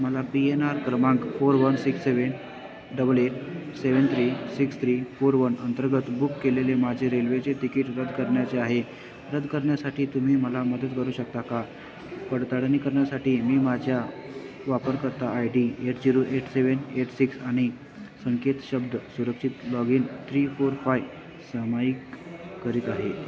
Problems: none marked